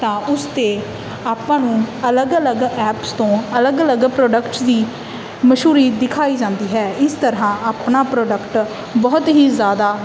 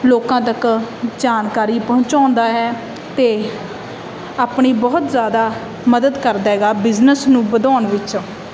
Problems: constant background noise